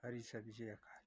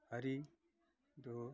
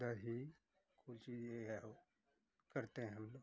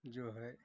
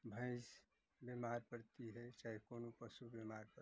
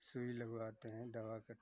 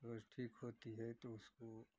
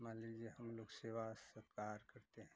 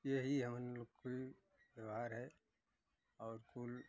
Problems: none marked